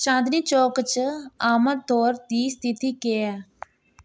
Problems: none marked